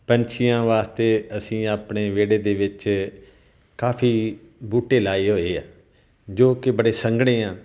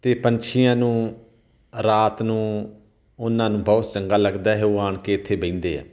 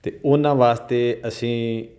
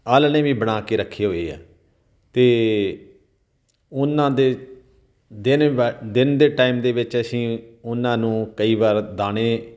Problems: none marked